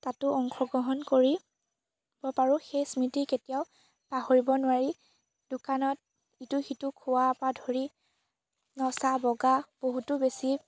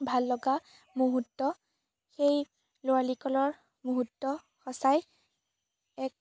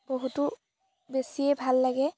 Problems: none marked